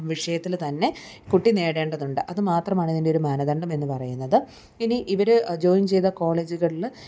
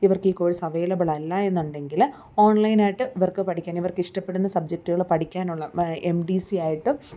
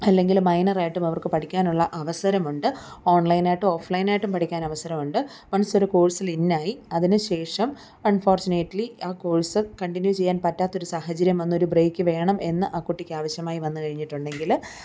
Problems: none marked